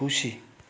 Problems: none marked